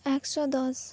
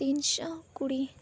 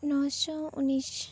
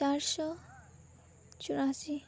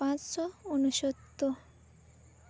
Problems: none marked